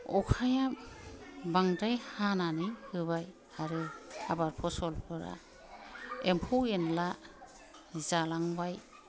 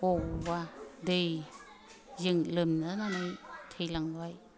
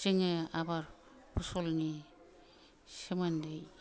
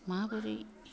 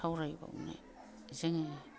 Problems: low volume